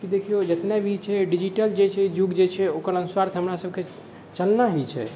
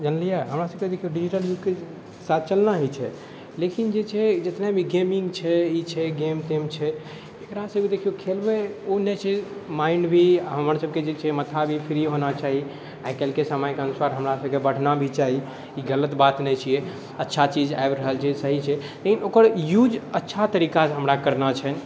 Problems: none marked